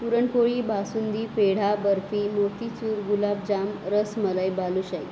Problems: constant background noise